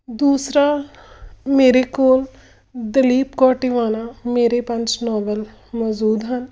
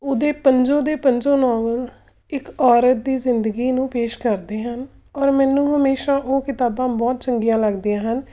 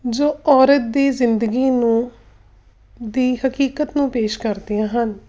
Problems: none marked